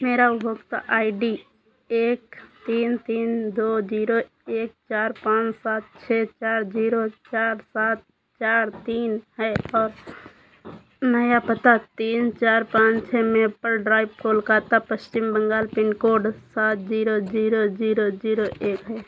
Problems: constant background noise